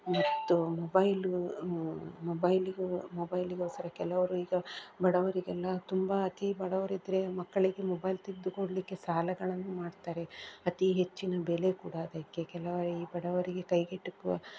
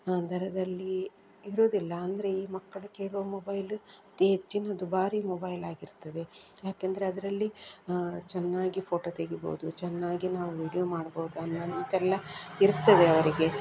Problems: background sounds at intervals